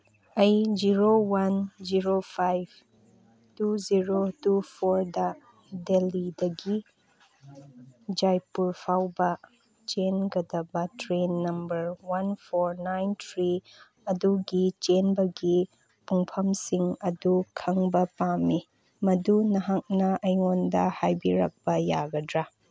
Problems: none marked